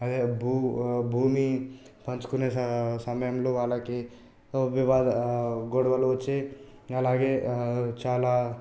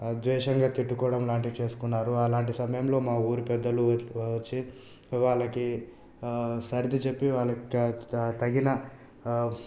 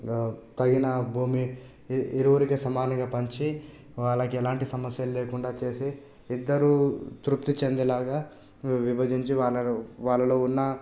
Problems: none marked